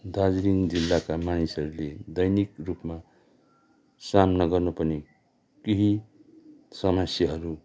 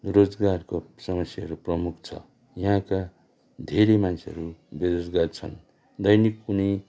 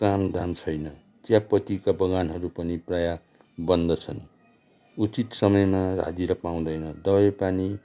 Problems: background conversations at intervals